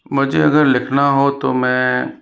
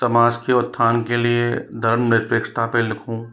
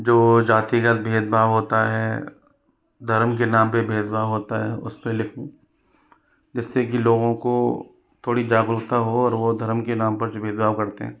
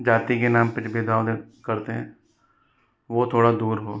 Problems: background sounds at intervals